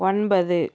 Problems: none marked